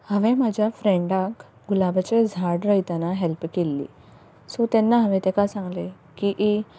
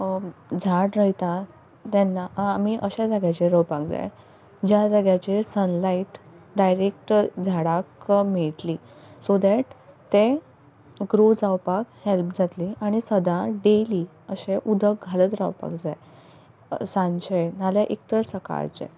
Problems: none marked